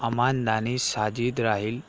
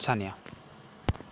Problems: background sounds at intervals